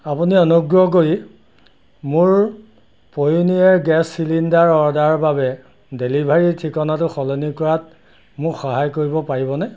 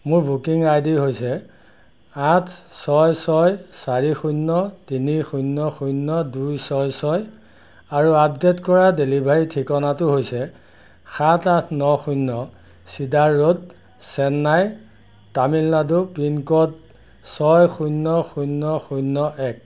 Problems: background sounds at intervals